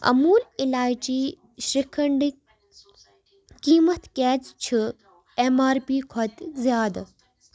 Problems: background sounds at intervals